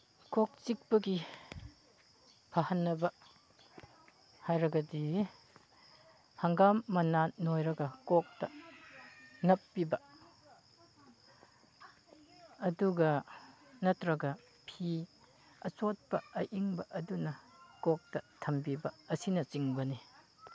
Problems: background conversations at intervals